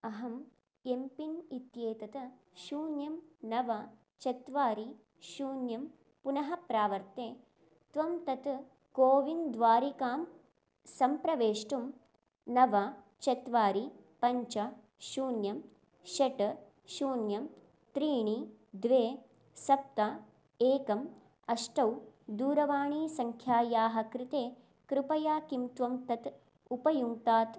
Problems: none marked